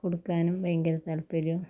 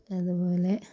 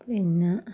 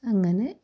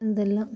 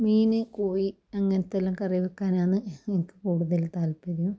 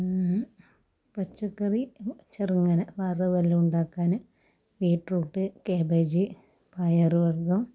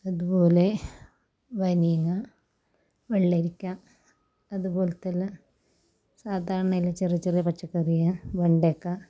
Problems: low volume